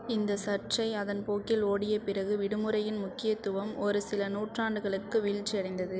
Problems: none marked